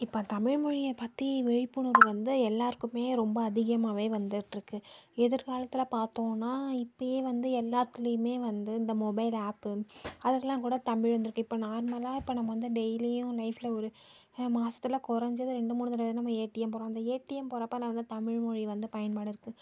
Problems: low volume